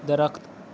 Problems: none marked